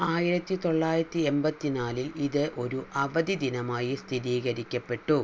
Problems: constant background noise